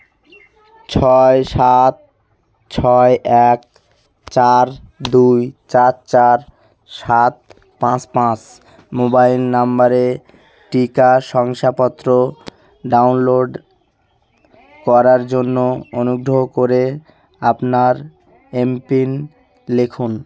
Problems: constant background noise, continuous background conversations